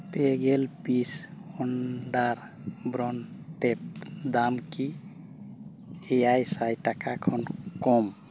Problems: none marked